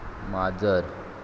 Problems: constant background noise